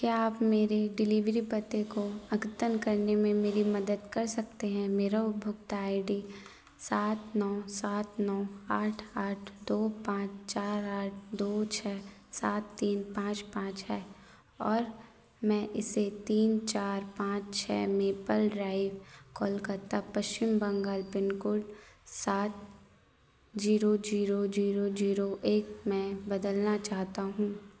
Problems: constant background noise